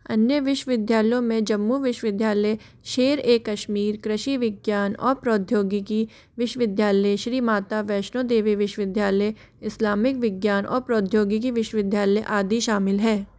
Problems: constant background noise